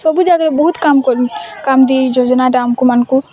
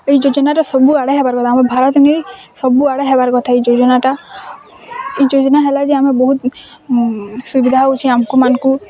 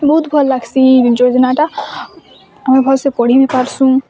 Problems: constant background noise, continuous background conversations